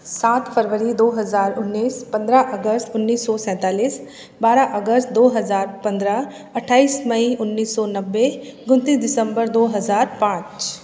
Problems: none marked